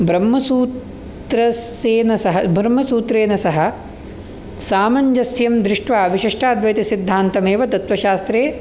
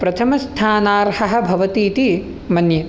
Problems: none marked